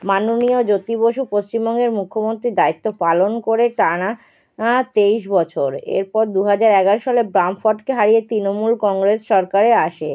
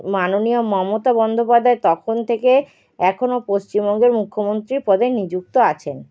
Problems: none marked